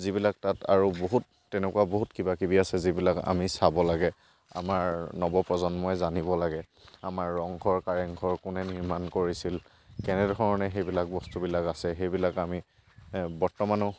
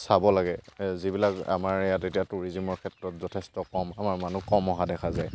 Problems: background sounds at intervals